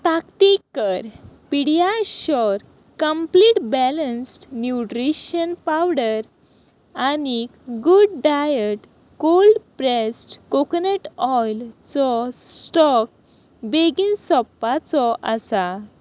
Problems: constant background noise